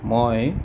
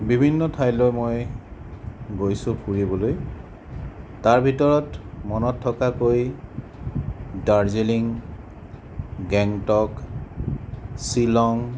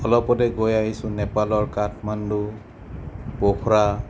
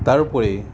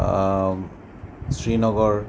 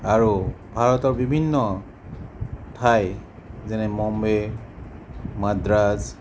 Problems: none marked